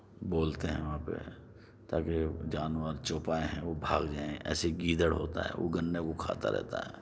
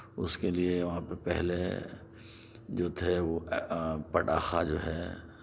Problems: background sounds at intervals